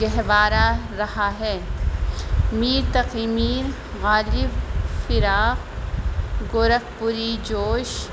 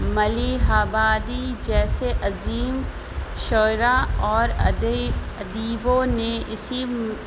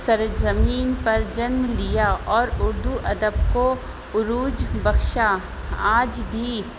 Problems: constant background noise